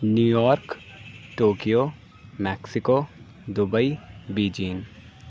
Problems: none marked